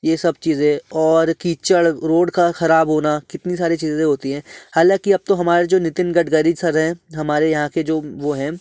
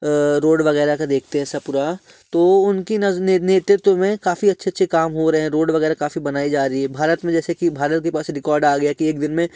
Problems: none marked